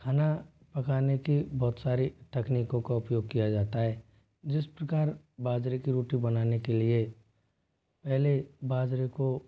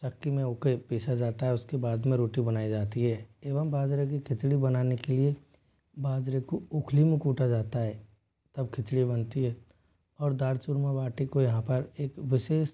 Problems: none marked